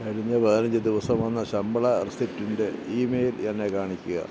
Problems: constant background noise, low volume